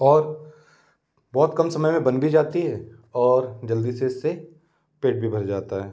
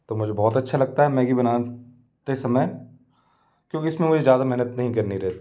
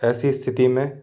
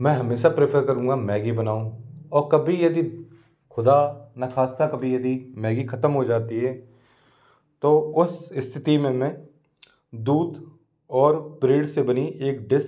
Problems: constant background noise